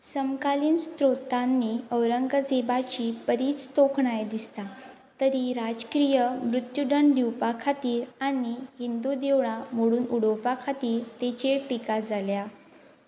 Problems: constant background noise